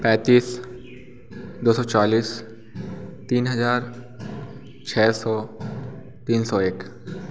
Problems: constant background noise, background conversations at intervals